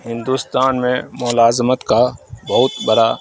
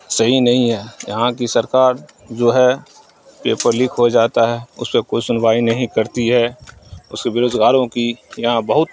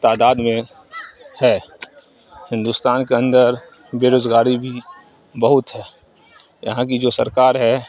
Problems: none marked